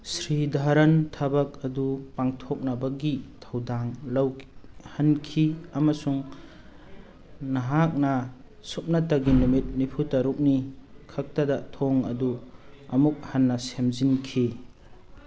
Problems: background sounds at intervals